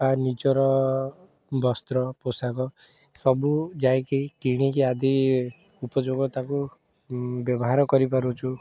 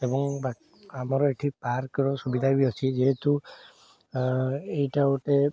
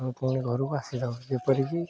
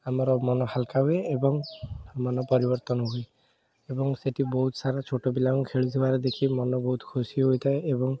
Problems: background sounds at intervals